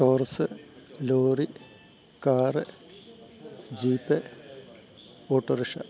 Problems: low volume